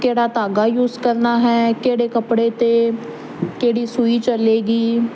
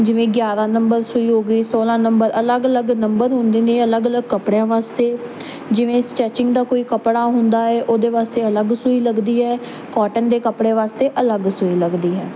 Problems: constant background noise